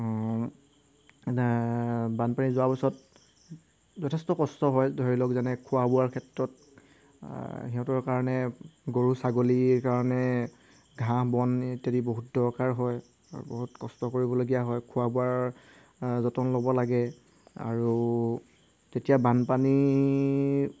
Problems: background sounds at intervals